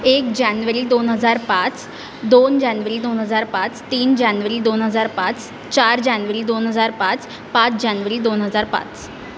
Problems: constant background noise